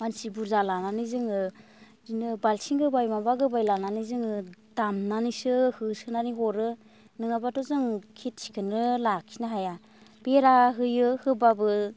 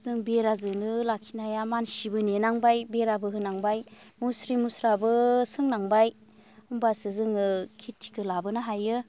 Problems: constant background noise